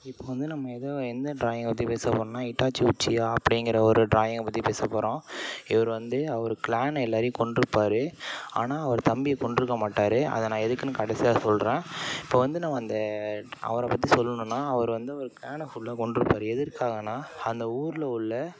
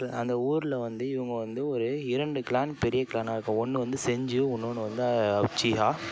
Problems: background sounds at intervals, background conversations at intervals